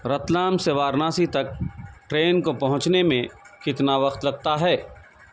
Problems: none marked